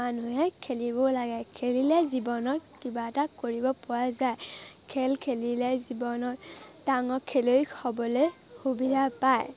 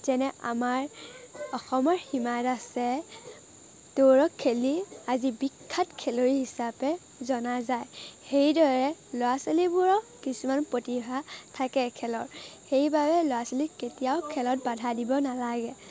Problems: constant background noise, background conversations at intervals